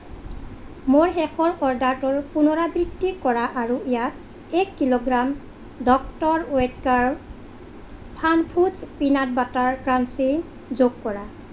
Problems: none marked